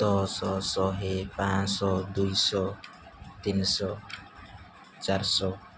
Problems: background sounds at intervals